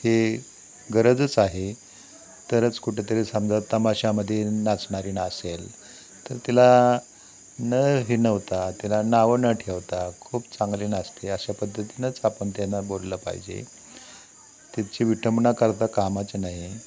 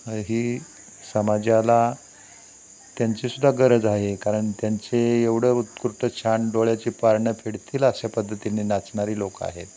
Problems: constant background noise, background conversations at intervals